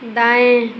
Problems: constant background noise